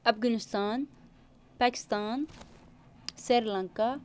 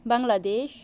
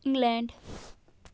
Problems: none marked